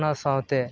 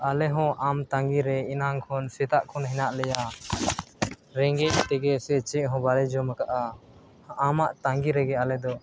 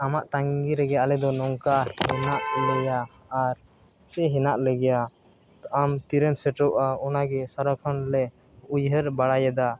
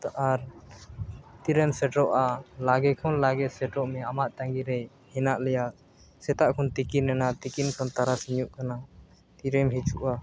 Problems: background sounds at intervals